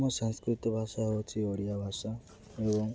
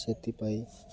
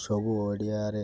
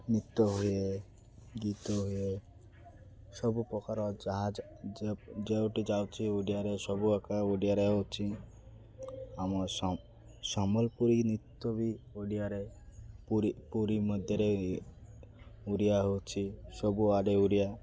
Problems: constant background noise